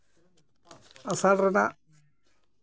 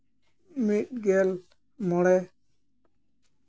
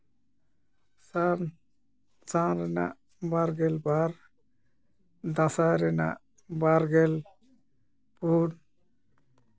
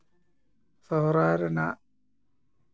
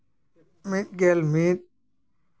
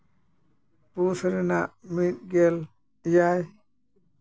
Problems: none marked